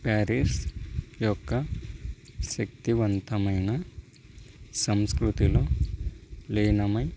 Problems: constant background noise